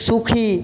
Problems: none marked